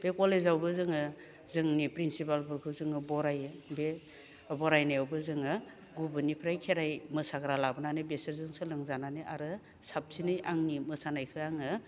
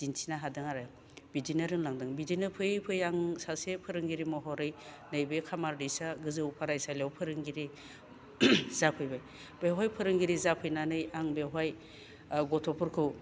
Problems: low volume